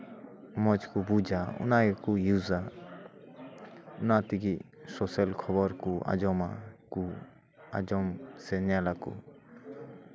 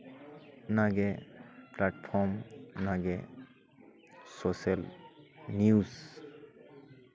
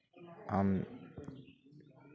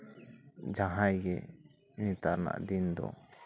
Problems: background sounds at intervals, continuous background conversations